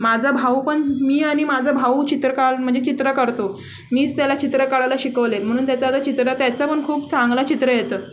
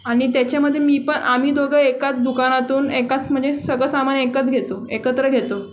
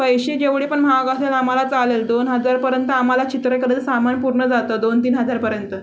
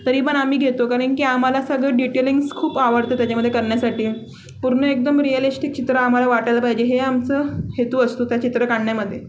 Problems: constant background noise, background conversations at intervals